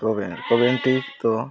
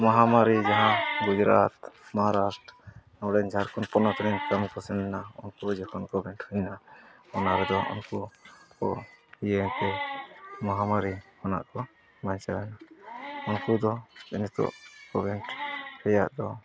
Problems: constant background noise, low volume